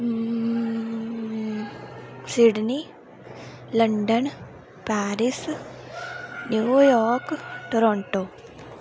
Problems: none marked